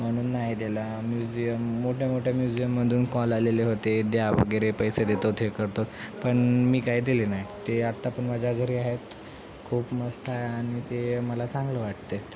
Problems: constant background noise, background conversations at intervals